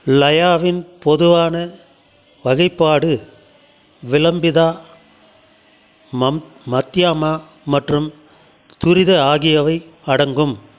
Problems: continuous background conversations